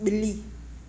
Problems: constant background noise